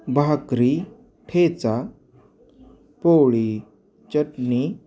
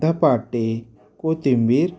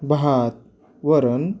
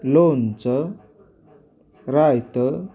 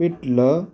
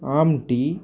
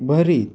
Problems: background sounds at intervals, background conversations at intervals